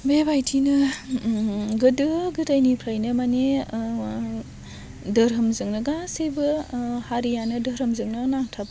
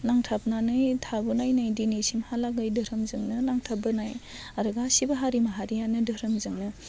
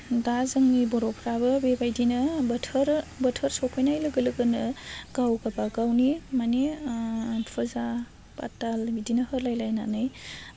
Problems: constant background noise